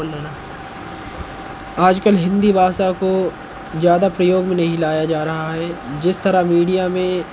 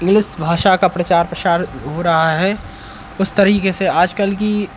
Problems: none marked